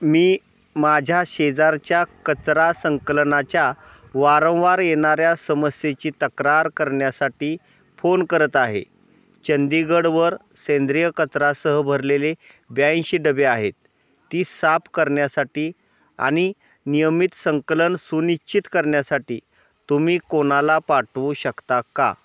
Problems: background sounds at intervals